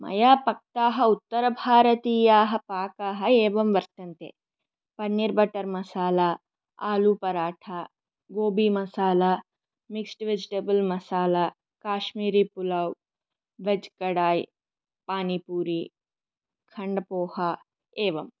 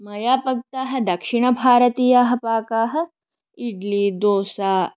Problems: none marked